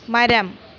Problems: none marked